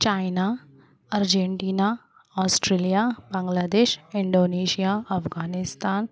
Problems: none marked